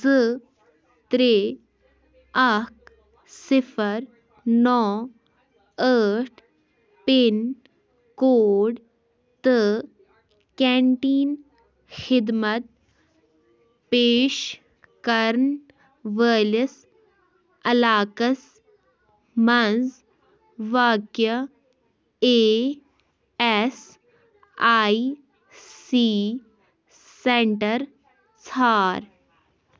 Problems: background sounds at intervals